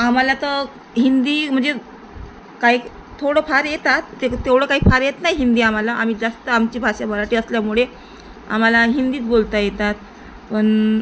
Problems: constant background noise